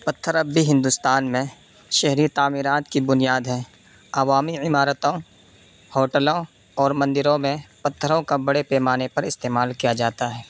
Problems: constant background noise